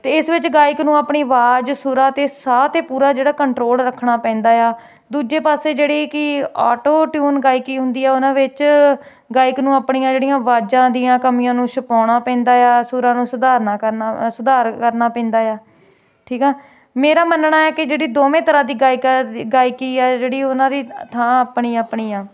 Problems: constant background noise